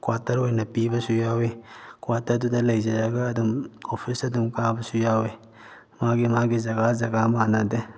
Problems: none marked